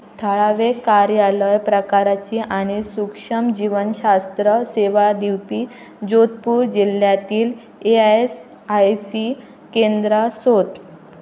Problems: none marked